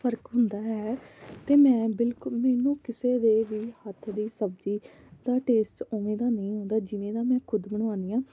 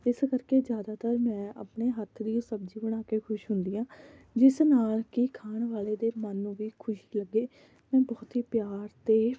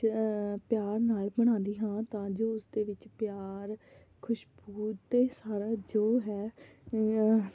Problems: none marked